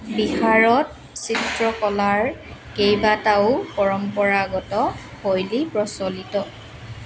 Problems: constant background noise